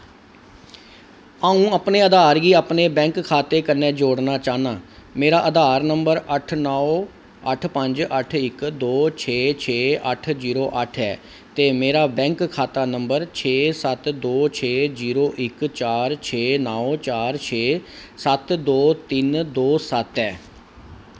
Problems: none marked